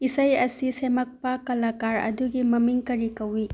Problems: low volume